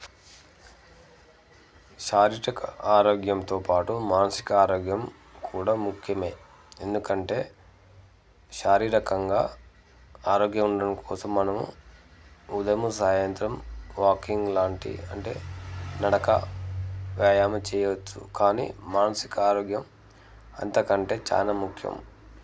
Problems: background conversations at intervals